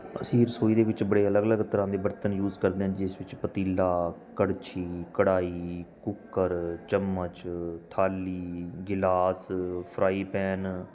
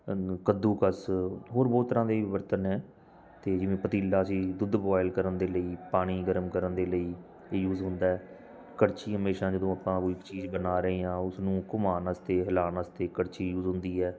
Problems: background sounds at intervals